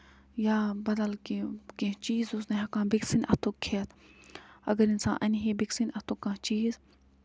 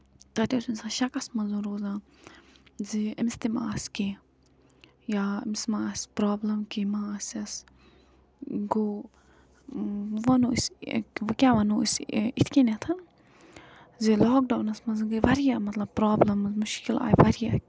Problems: background sounds at intervals